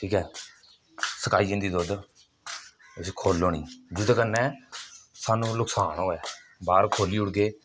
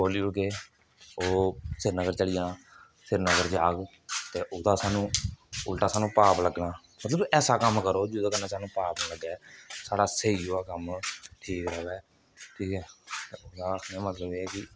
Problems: none marked